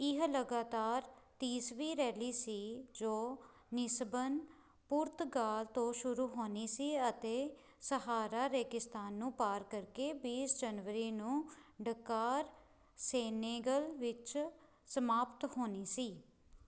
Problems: background sounds at intervals